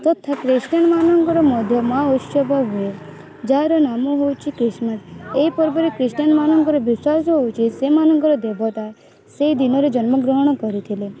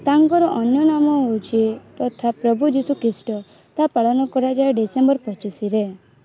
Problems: constant background noise, continuous background conversations